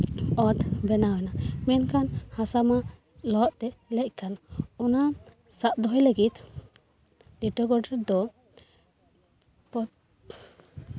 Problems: background sounds at intervals